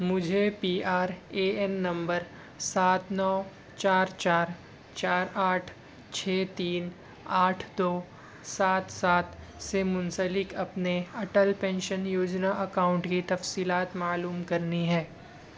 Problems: none marked